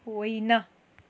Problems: none marked